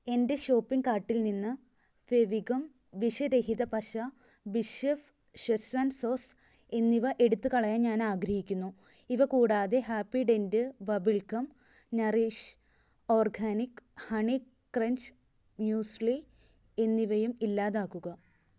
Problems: none marked